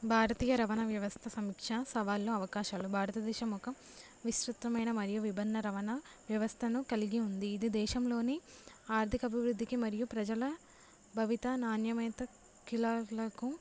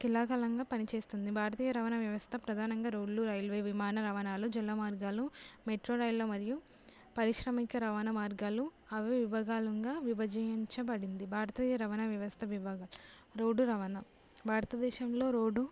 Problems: low volume